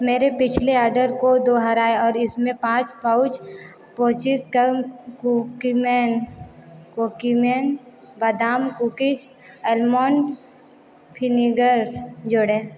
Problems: background sounds at intervals, continuous background conversations